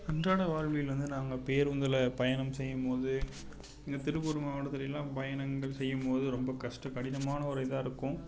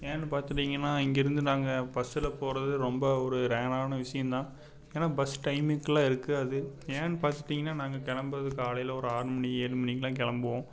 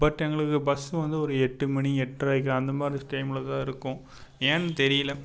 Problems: constant background noise